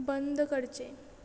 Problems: none marked